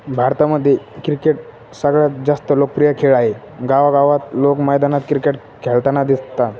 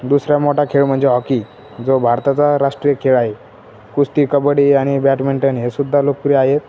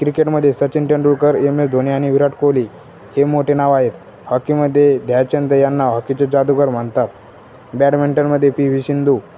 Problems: constant background noise